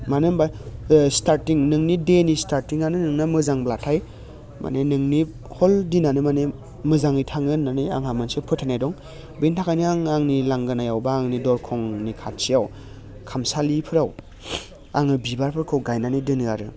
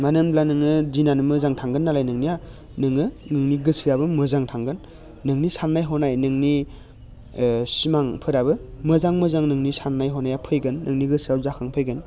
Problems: low volume